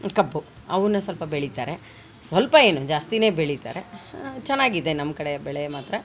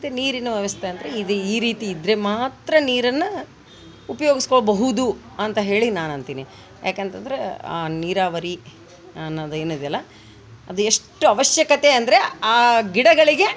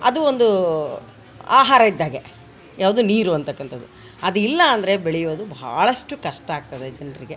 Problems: background sounds at intervals